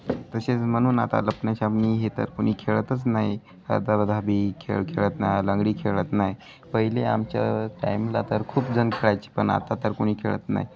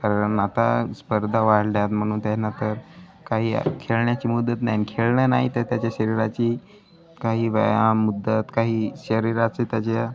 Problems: continuous background conversations